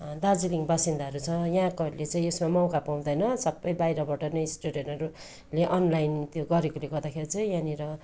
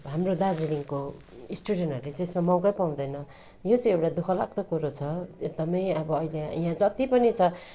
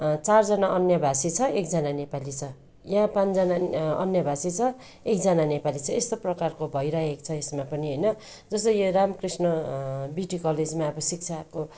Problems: constant background noise